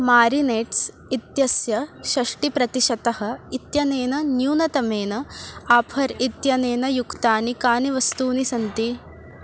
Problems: none marked